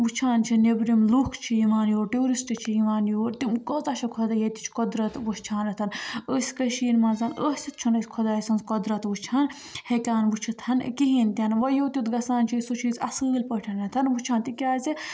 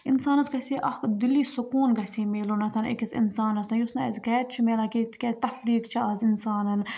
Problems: background sounds at intervals